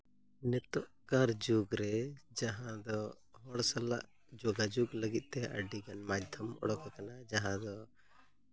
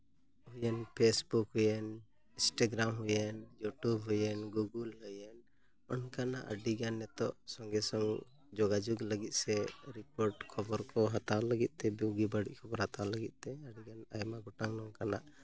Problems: none marked